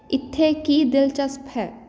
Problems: background sounds at intervals